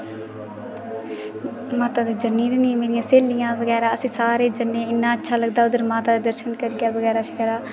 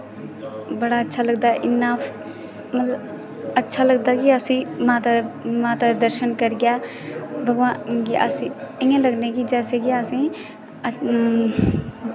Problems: constant background noise